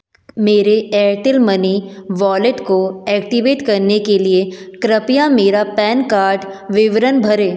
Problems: none marked